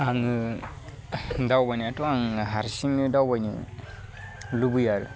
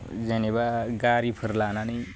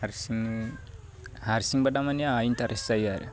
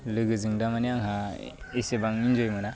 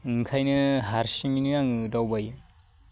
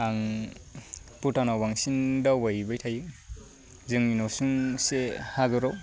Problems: none marked